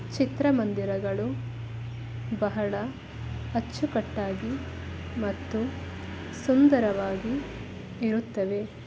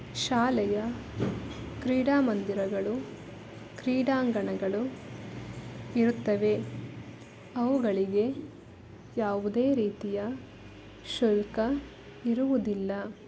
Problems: background sounds at intervals